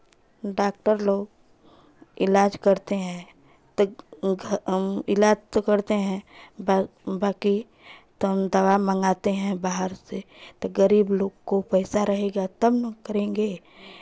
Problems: background sounds at intervals, continuous background conversations